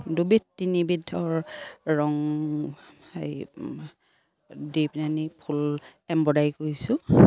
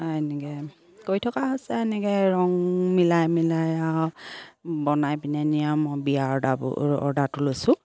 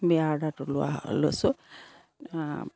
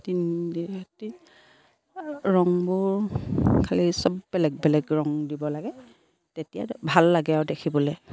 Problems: background sounds at intervals